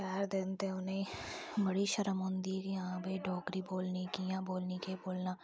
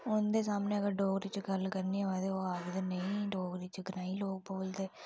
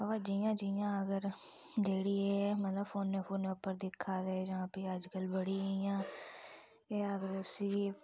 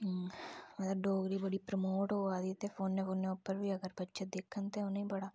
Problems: low volume